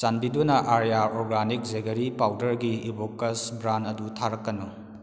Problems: background sounds at intervals